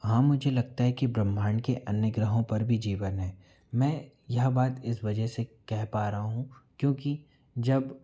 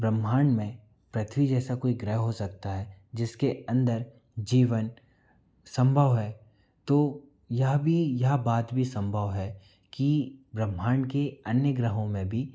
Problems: none marked